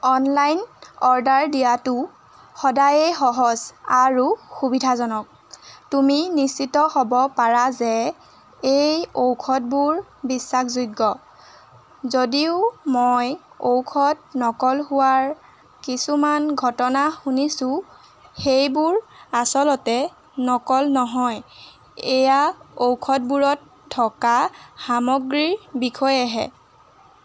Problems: constant background noise